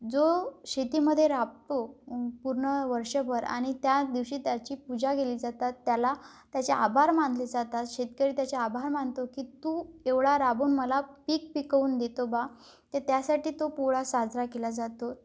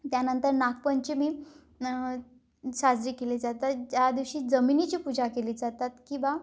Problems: none marked